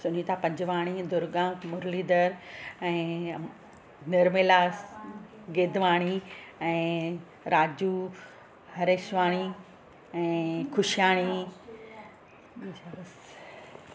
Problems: constant background noise, background conversations at intervals